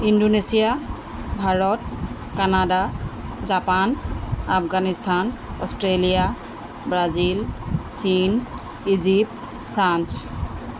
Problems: background sounds at intervals